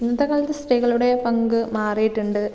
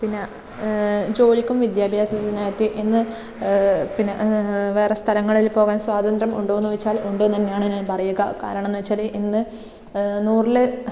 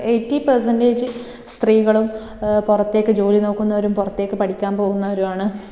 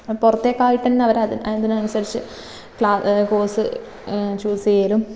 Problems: none marked